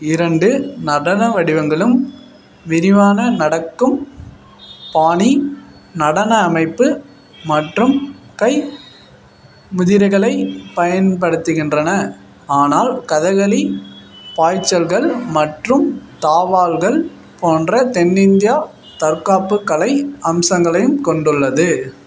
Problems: background sounds at intervals